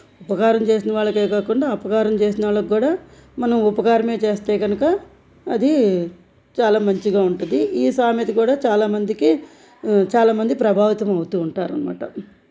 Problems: none marked